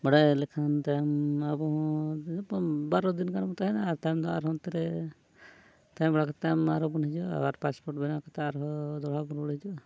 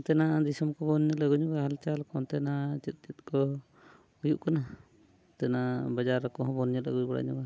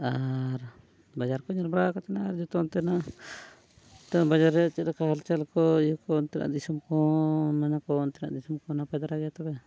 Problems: background sounds at intervals